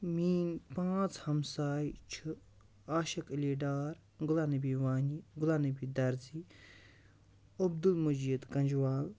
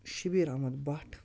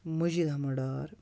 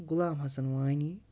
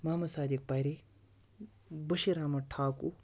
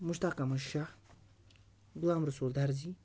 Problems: none marked